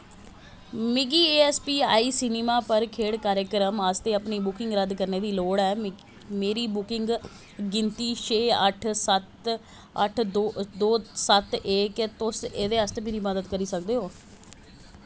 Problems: constant background noise